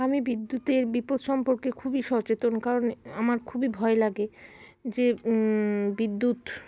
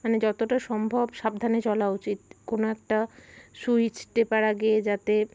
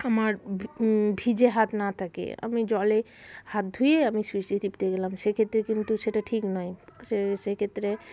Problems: constant background noise